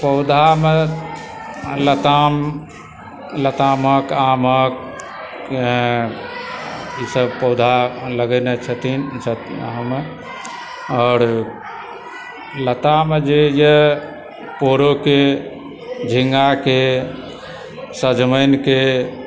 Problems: background sounds at intervals, continuous background conversations